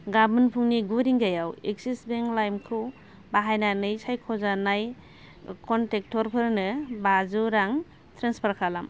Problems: none marked